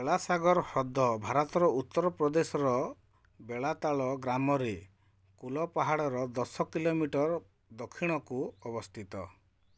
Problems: none marked